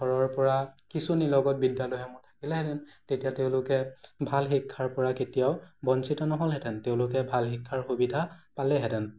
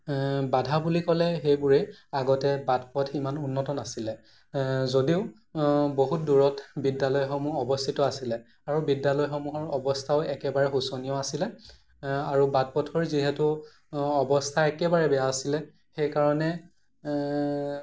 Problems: none marked